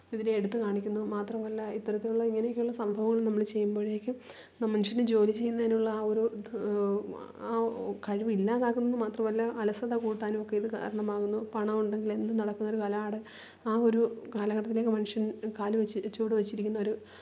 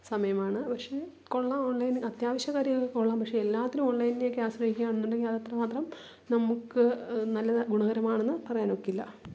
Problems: low volume